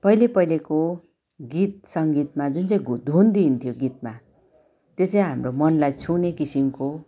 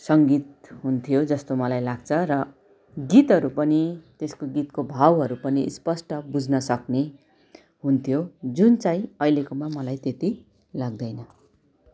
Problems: continuous background conversations